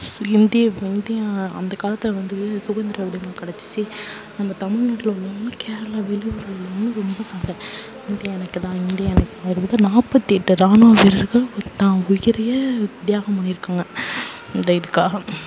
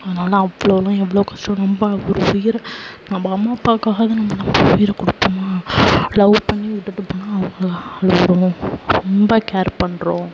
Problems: background sounds at intervals, low volume